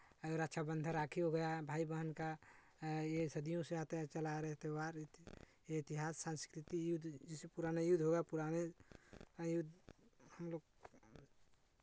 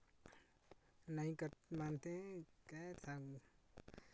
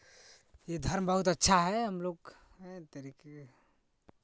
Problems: background sounds at intervals